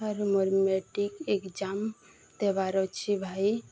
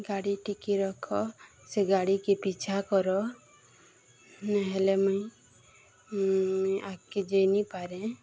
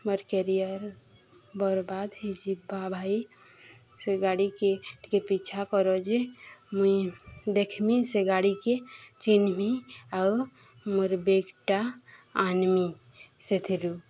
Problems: constant background noise, continuous background conversations